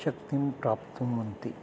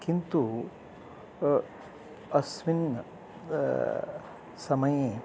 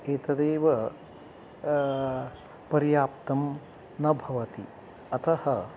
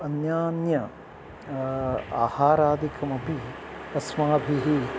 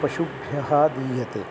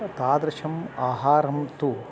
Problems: background sounds at intervals